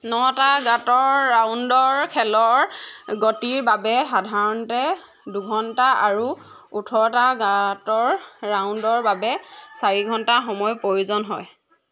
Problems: none marked